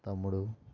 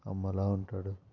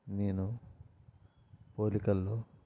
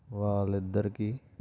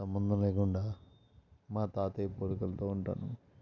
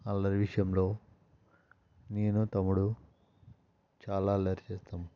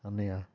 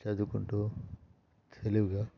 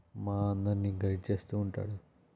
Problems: constant background noise, low volume